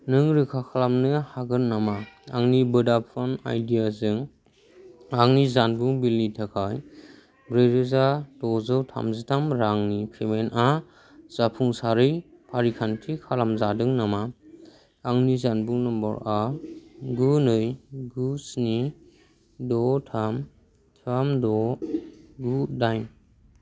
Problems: constant background noise